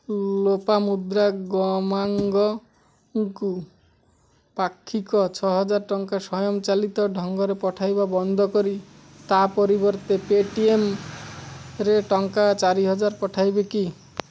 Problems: none marked